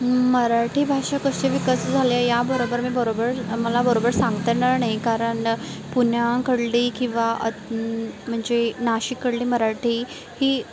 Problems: constant background noise